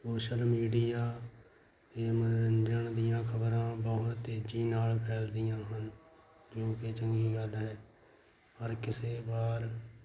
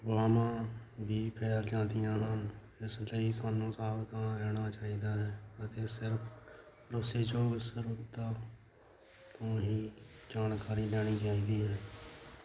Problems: constant background noise